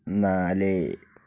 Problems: low volume